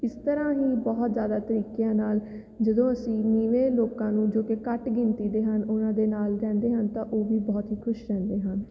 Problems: none marked